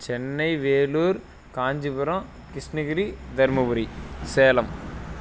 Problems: none marked